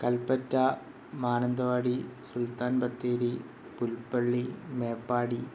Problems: constant background noise